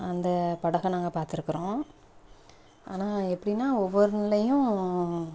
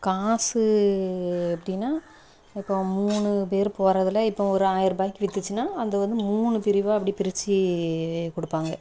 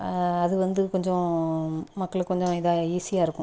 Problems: none marked